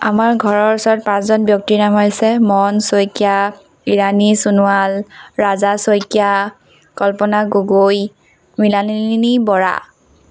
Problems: background sounds at intervals